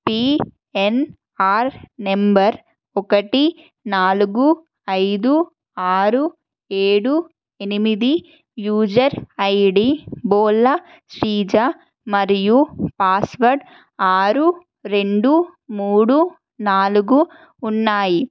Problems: constant background noise